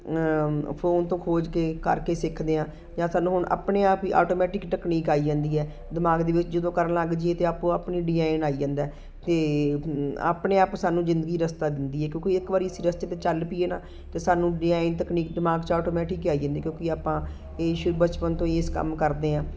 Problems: constant background noise